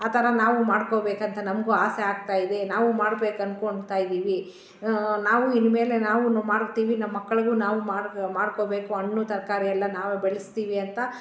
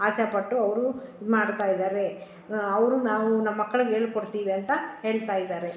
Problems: none marked